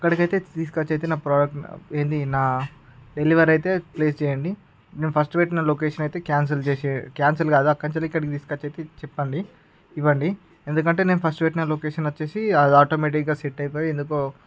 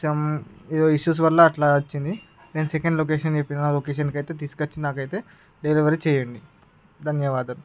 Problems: background sounds at intervals